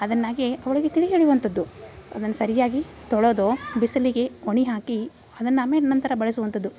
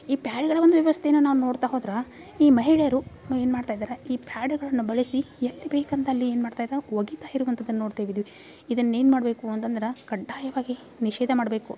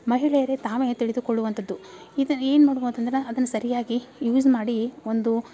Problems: background sounds at intervals